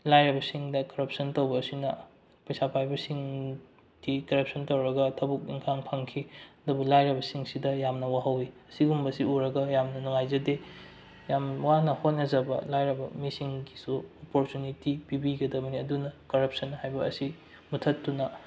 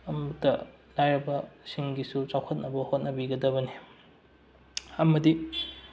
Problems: low volume